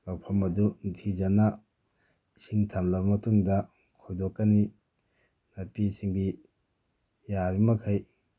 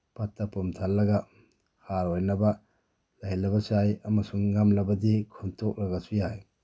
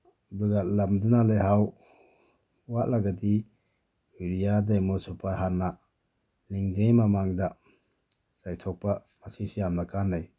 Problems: background sounds at intervals